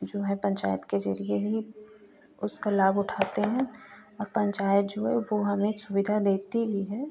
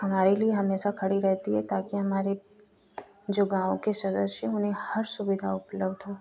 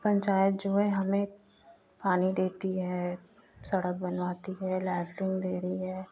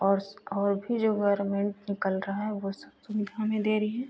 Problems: constant background noise